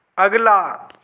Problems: background sounds at intervals